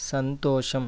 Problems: none marked